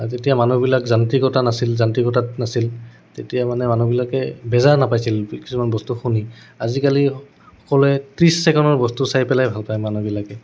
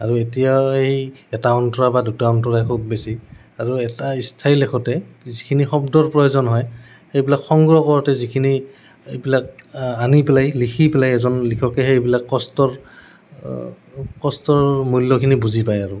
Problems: none marked